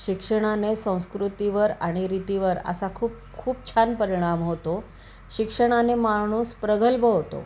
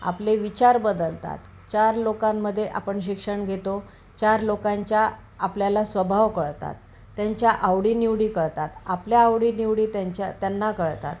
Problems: constant background noise